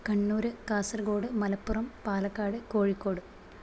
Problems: constant background noise, low volume